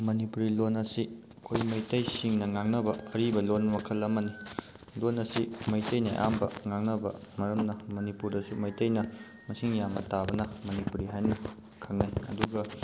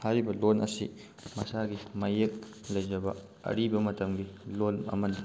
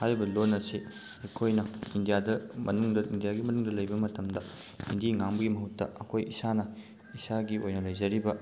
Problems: constant background noise